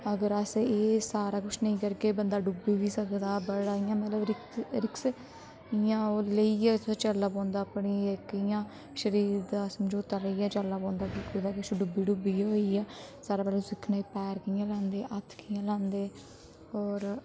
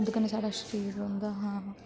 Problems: constant background noise